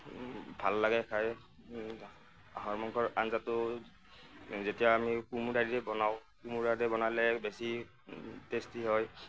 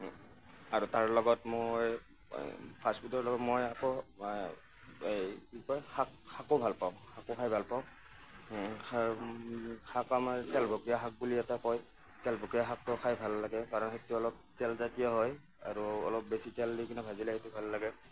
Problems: none marked